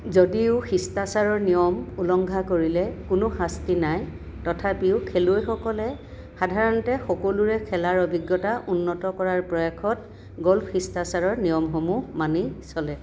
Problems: constant background noise, echo